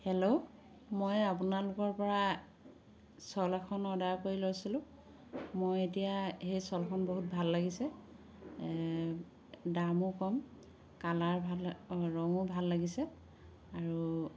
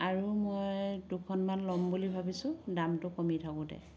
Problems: constant background noise